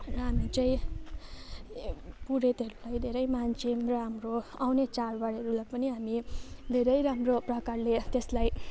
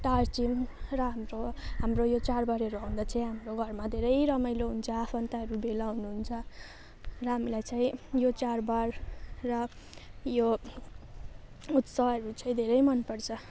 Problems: none marked